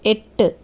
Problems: none marked